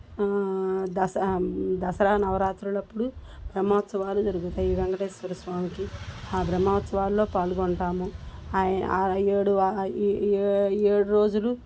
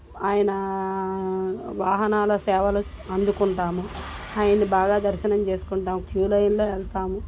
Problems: constant background noise